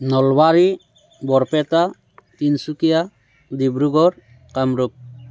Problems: constant background noise